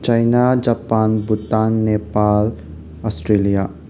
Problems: constant background noise